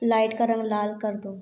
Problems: constant background noise